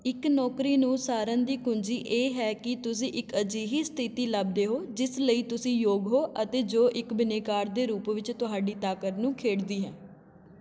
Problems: continuous background conversations